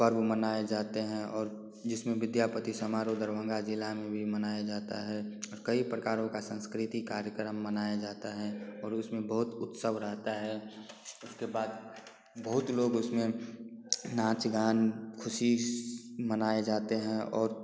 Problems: constant background noise